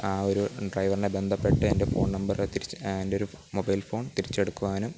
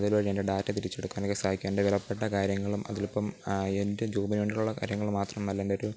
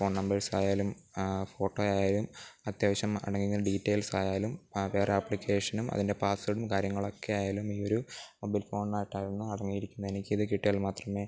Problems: background sounds at intervals, low volume